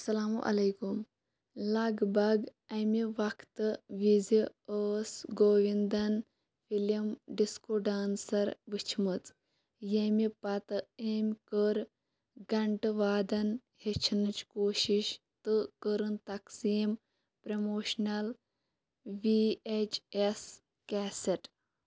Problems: background sounds at intervals